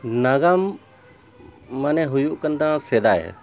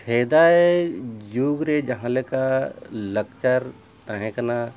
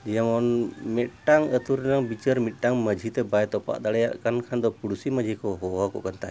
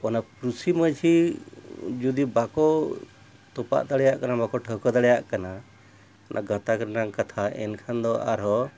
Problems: none marked